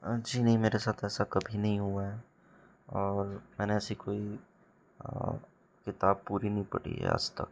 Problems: background sounds at intervals